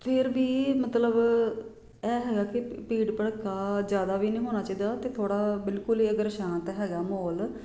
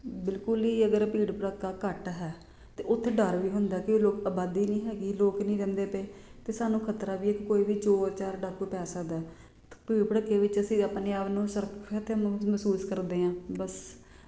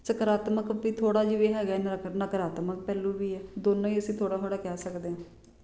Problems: none marked